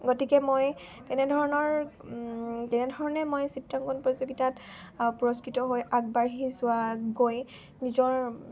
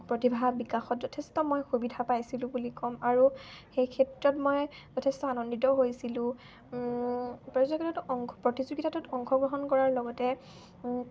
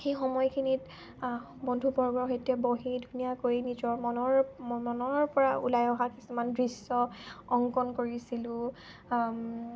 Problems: none marked